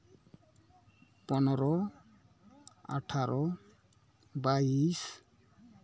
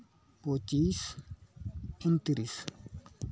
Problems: background conversations at intervals